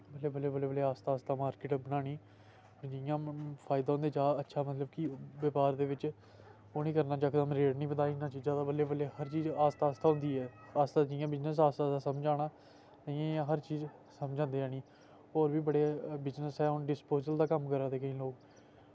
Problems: background sounds at intervals